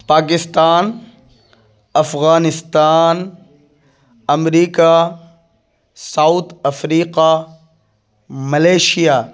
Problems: none marked